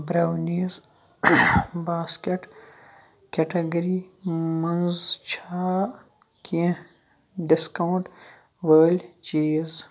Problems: background sounds at intervals